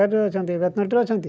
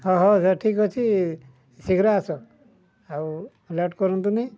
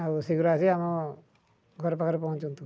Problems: low volume